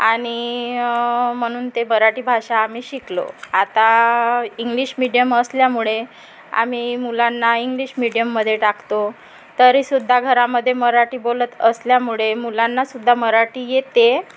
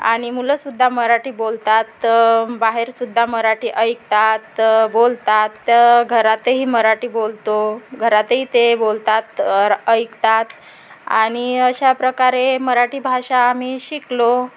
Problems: constant background noise, background conversations at intervals